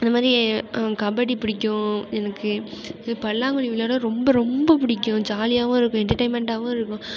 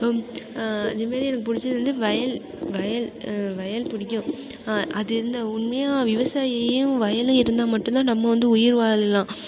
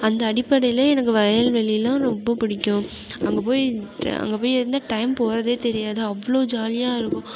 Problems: constant background noise